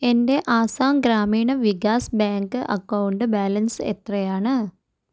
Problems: none marked